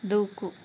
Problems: constant background noise